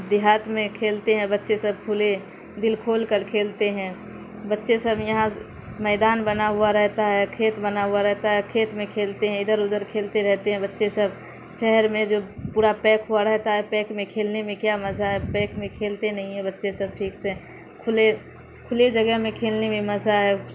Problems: constant background noise